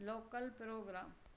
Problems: constant background noise